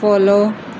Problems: none marked